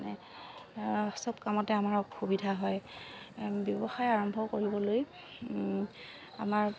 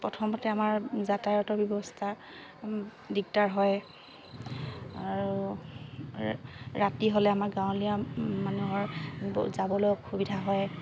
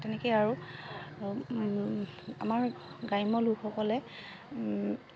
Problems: constant background noise